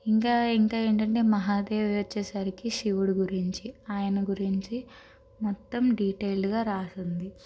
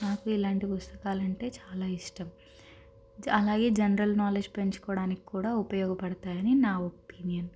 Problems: constant background noise